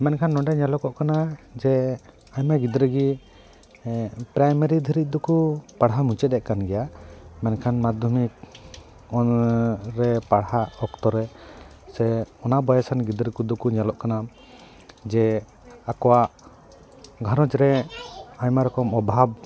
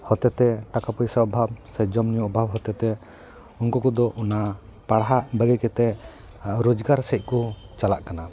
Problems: background sounds at intervals